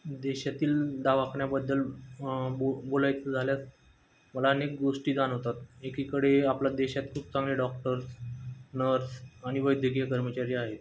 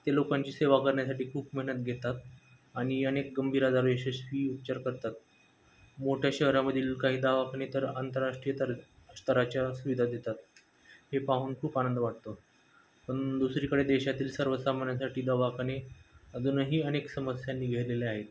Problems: background sounds at intervals